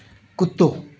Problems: constant background noise, echo